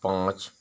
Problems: none marked